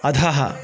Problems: constant background noise